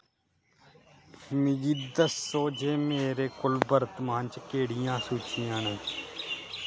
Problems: constant background noise